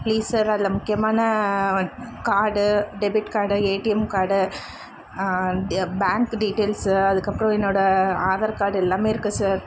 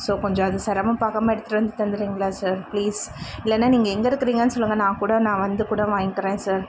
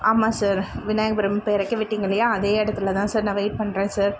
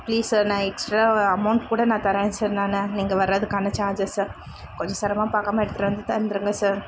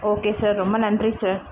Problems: constant background noise